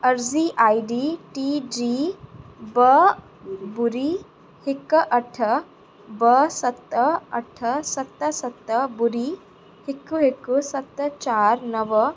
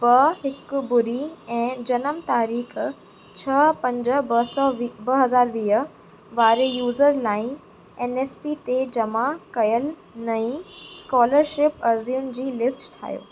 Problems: constant background noise, echo